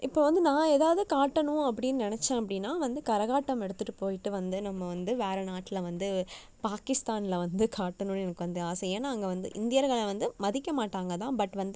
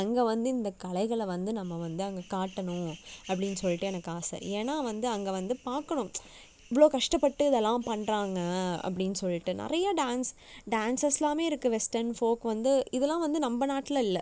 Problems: background sounds at intervals